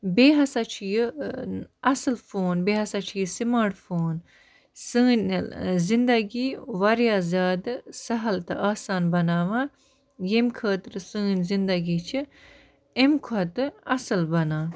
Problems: none marked